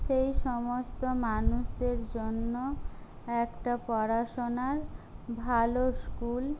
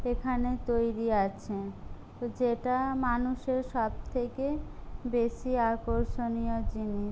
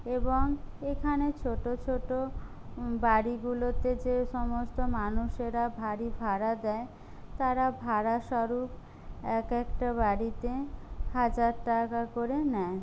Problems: low volume